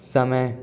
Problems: background sounds at intervals